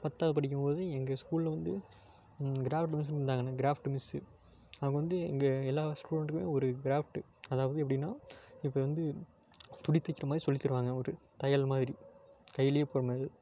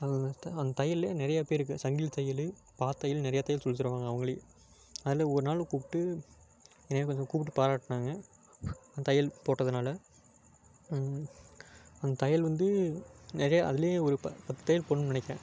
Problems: background sounds at intervals